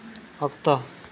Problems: none marked